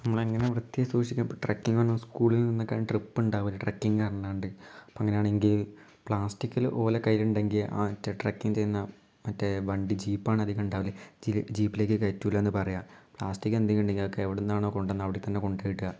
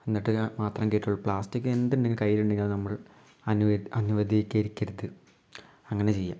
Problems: low volume